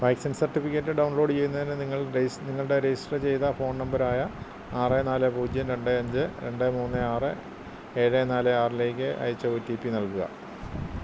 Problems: constant background noise